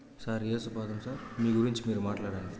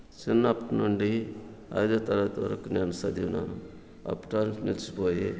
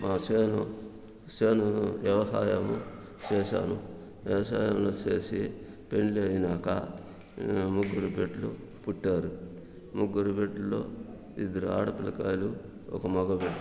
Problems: background sounds at intervals